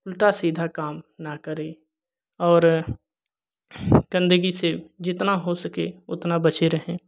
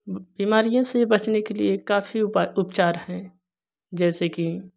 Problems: constant background noise